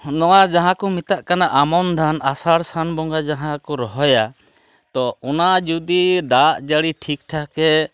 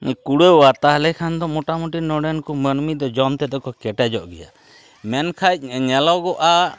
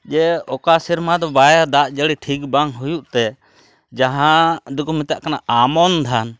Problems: none marked